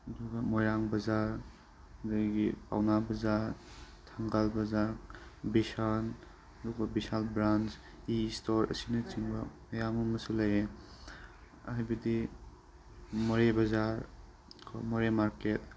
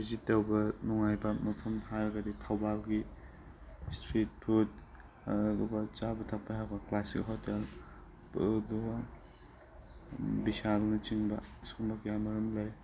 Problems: constant background noise